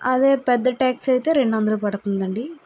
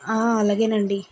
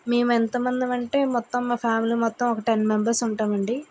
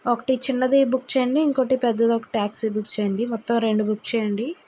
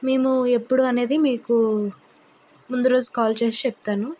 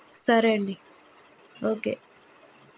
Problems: constant background noise